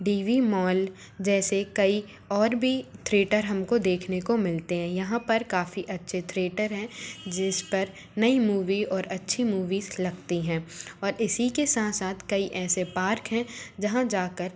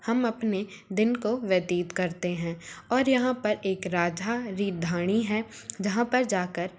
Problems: constant background noise